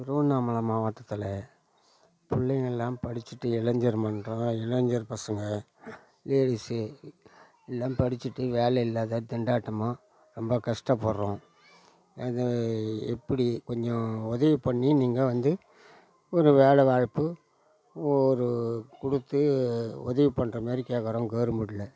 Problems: background conversations at intervals